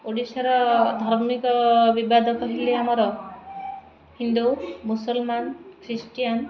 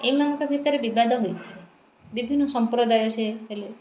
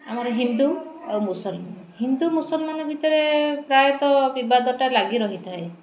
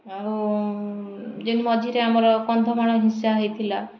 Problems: none marked